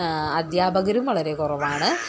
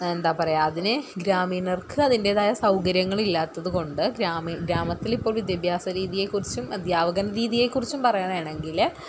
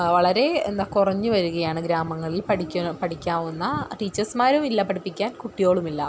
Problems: none marked